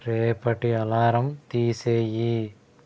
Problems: constant background noise